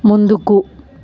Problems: constant background noise